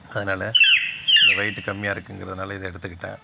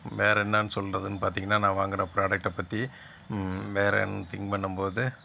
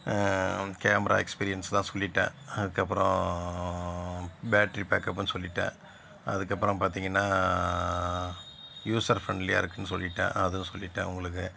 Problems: constant background noise